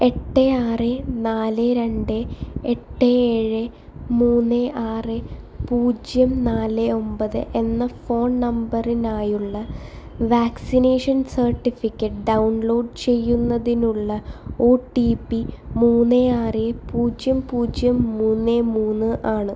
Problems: background sounds at intervals